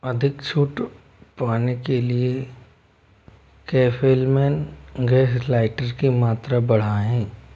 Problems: constant background noise